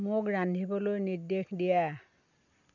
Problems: constant background noise